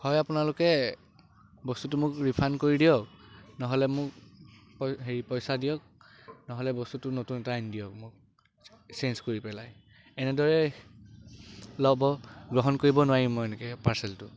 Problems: constant background noise